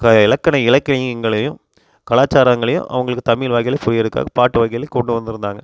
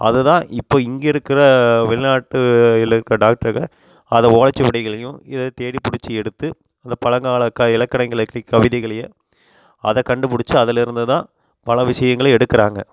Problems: constant background noise